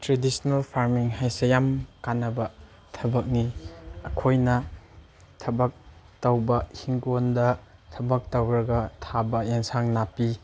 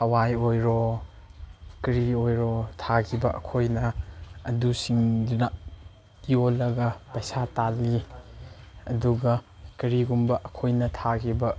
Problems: none marked